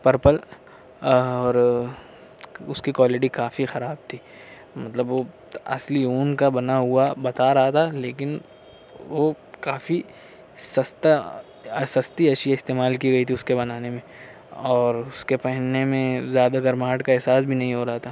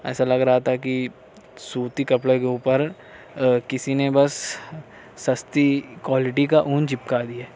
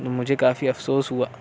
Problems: constant background noise